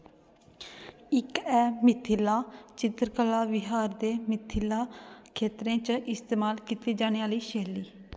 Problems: none marked